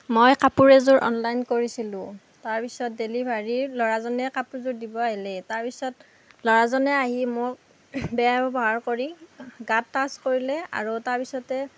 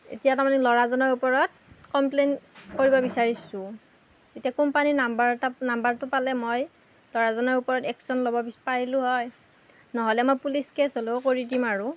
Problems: constant background noise